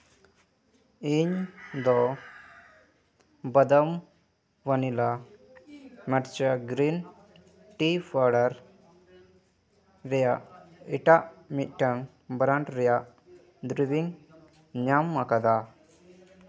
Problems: continuous background conversations